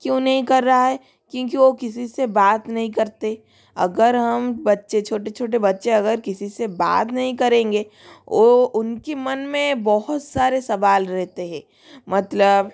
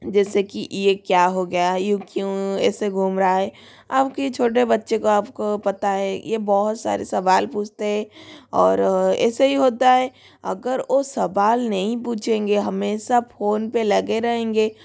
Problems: none marked